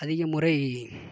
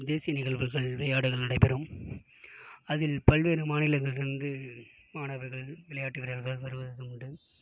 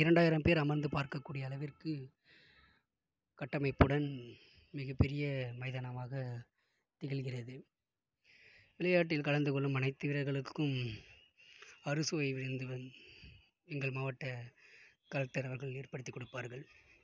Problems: background sounds at intervals, low volume